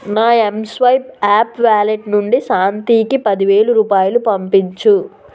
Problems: constant background noise